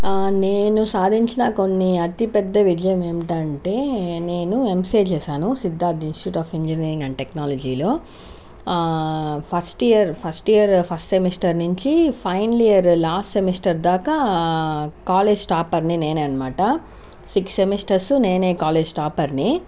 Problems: none marked